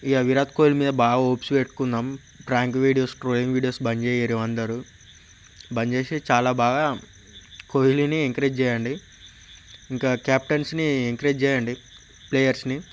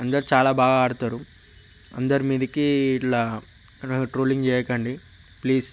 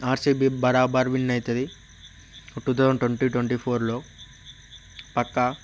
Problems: constant background noise